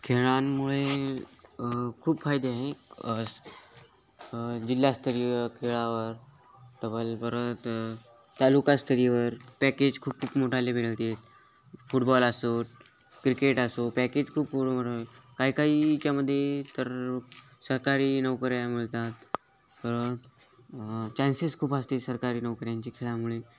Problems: background sounds at intervals, continuous background conversations